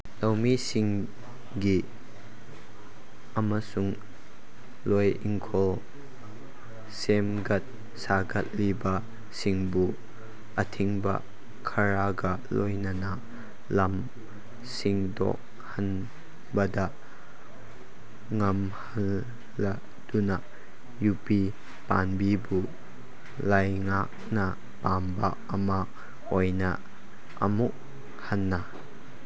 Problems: background sounds at intervals